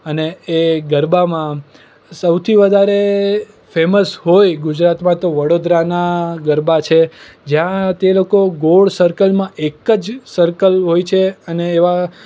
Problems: none marked